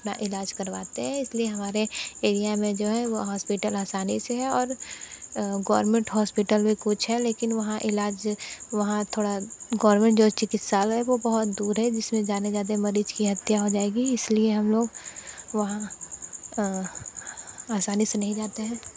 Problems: constant background noise